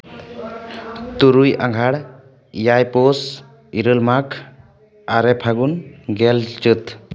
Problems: none marked